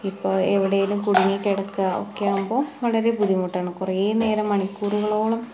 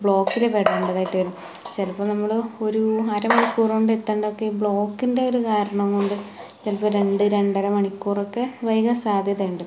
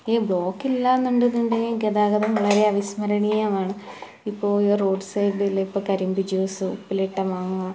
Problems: background sounds at intervals